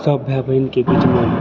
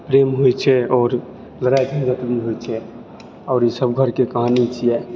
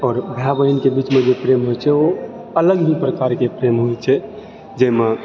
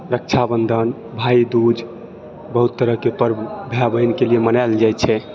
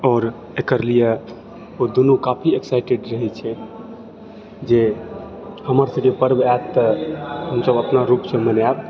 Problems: background sounds at intervals, continuous background conversations